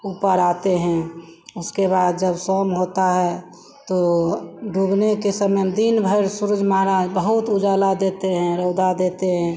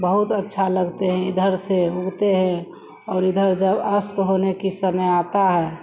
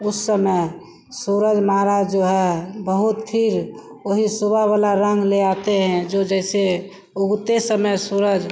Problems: background sounds at intervals